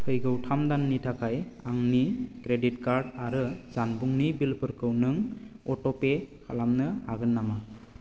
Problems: constant background noise